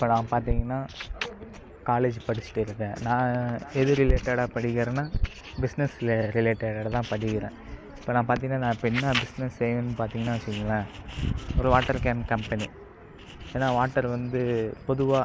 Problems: constant background noise